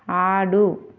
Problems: none marked